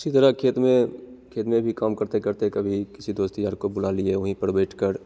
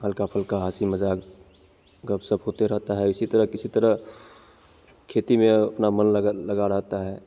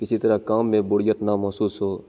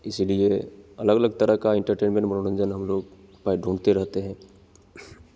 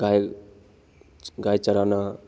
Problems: none marked